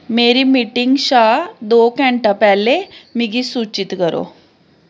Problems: background sounds at intervals